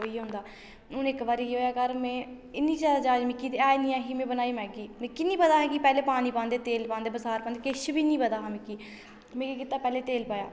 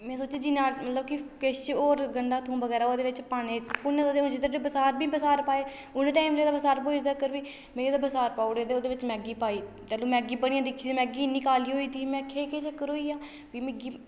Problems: none marked